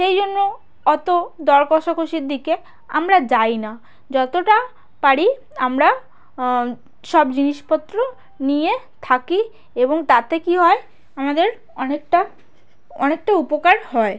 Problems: constant background noise